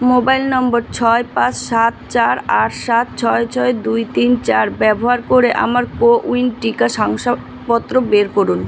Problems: constant background noise